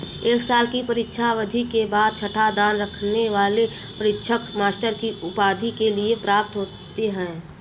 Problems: constant background noise